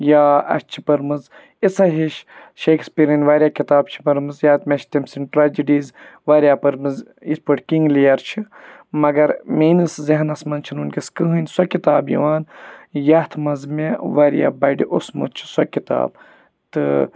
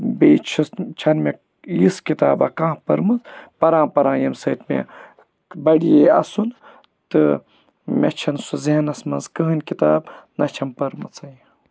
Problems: background sounds at intervals